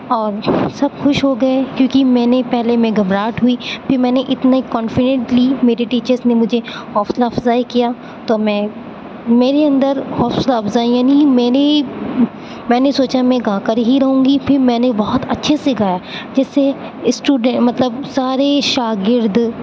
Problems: constant background noise